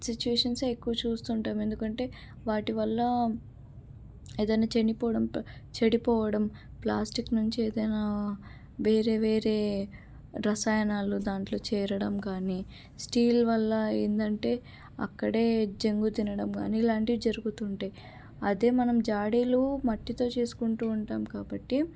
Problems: none marked